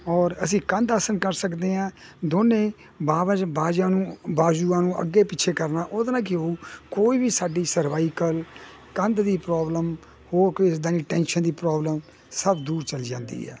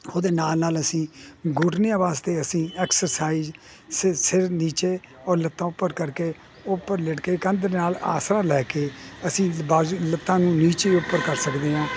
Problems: none marked